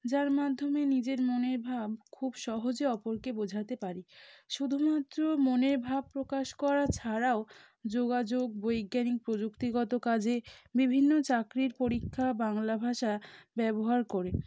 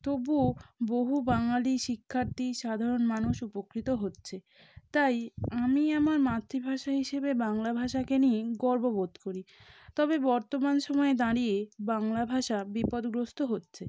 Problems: background sounds at intervals